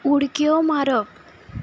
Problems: constant background noise